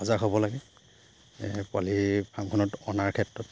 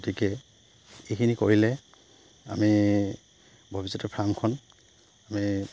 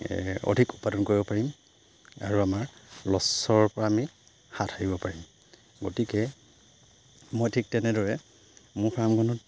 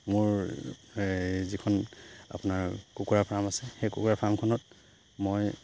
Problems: none marked